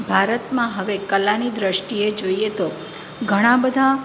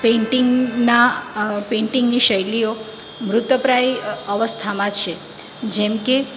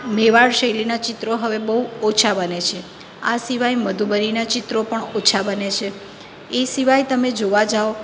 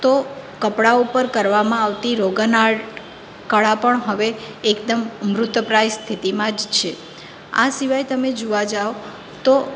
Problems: constant background noise